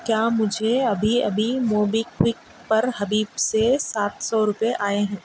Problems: constant background noise